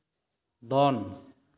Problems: echo